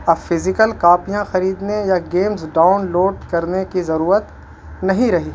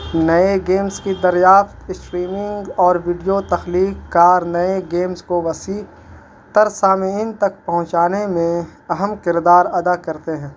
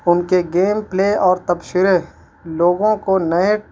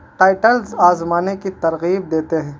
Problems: constant background noise